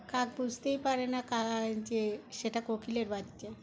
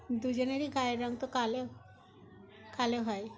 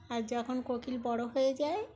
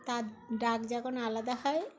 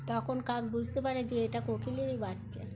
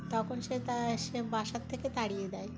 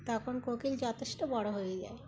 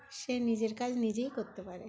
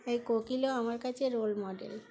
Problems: constant background noise, continuous background conversations